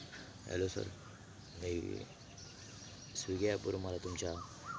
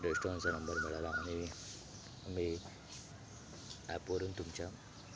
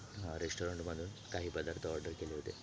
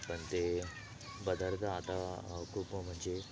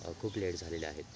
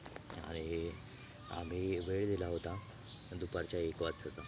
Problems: constant background noise, background conversations at intervals